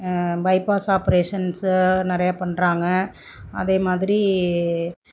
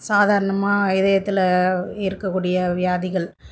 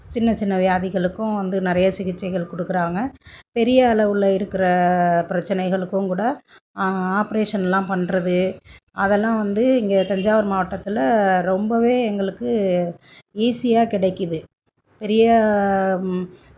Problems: none marked